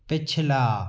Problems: echo